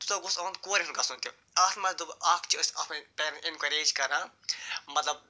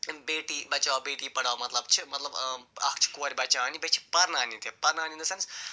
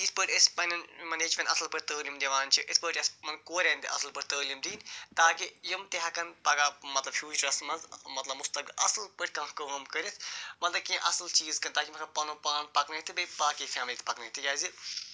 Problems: constant background noise